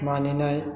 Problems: background sounds at intervals